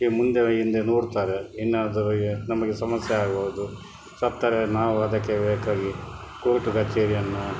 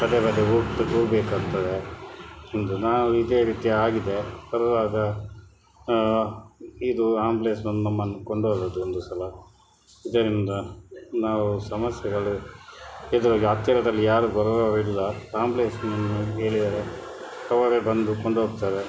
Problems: background sounds at intervals